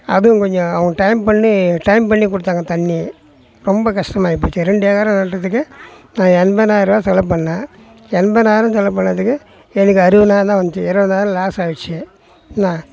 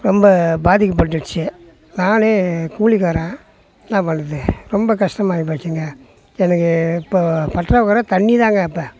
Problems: background conversations at intervals